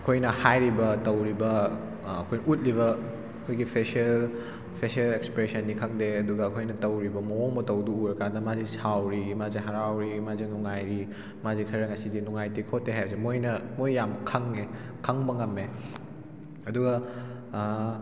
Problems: background sounds at intervals